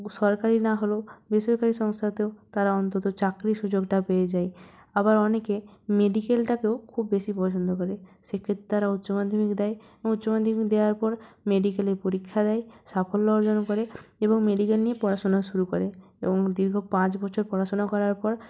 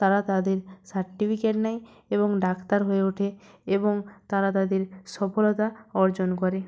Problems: none marked